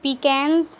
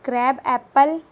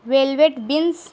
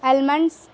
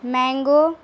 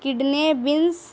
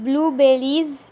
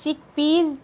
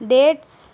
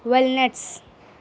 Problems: constant background noise